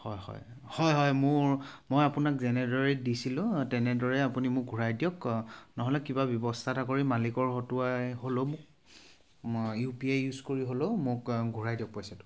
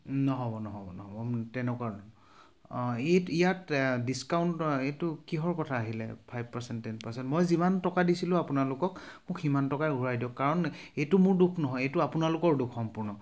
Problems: background sounds at intervals